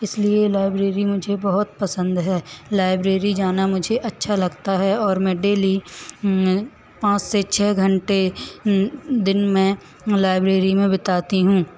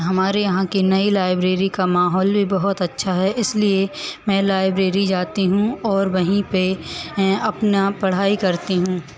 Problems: constant background noise, echo